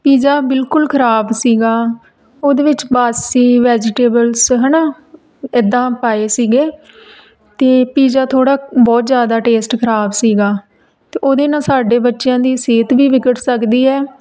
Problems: background sounds at intervals